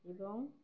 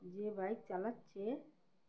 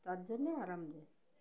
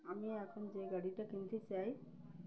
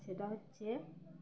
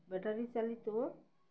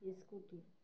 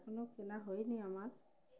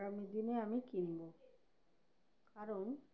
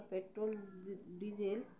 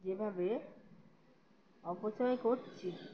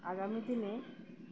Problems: background sounds at intervals